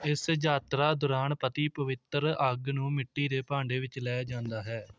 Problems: none marked